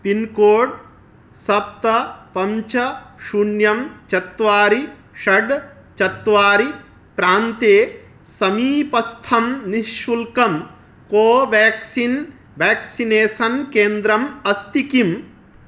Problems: none marked